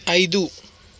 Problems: constant background noise